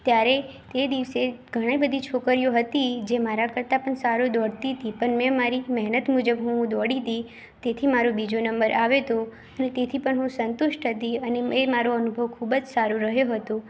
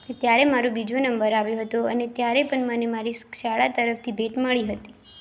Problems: constant background noise